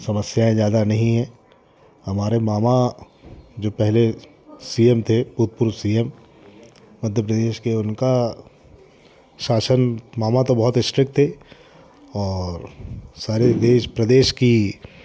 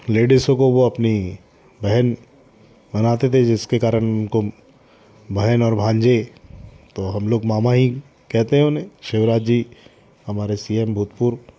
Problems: none marked